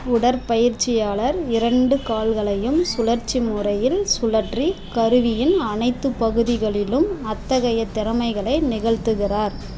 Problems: constant background noise